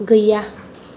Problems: none marked